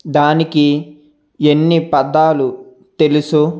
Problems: none marked